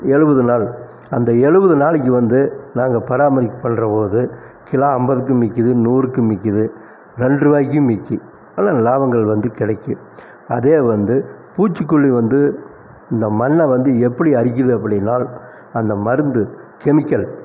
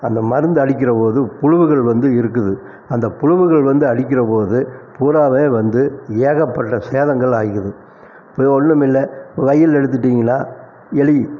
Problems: none marked